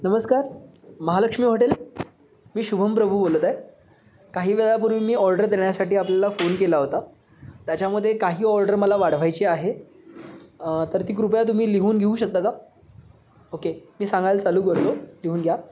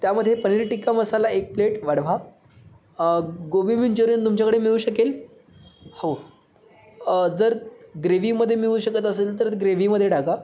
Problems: constant background noise